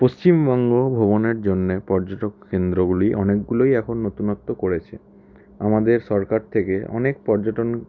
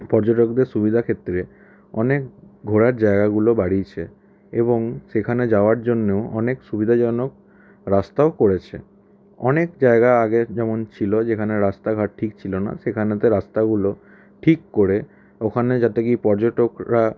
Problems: constant background noise